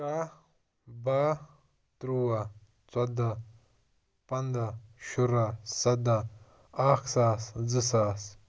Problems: none marked